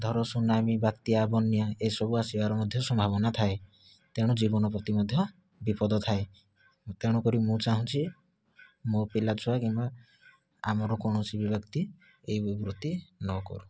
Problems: low volume